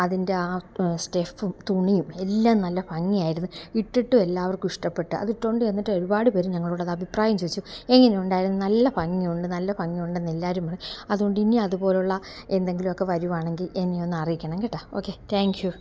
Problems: none marked